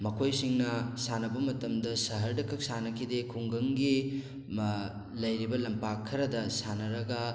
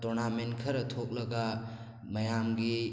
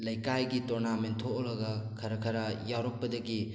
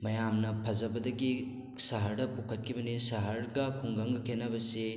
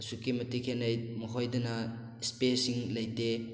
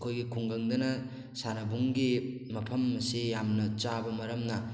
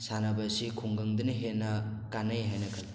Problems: background sounds at intervals